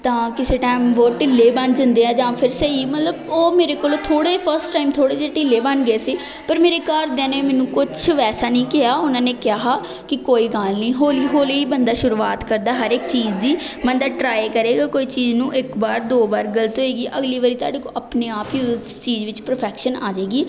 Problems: constant background noise, continuous background conversations